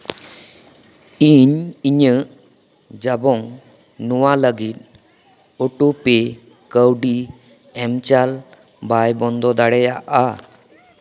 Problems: background sounds at intervals, background conversations at intervals